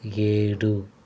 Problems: constant background noise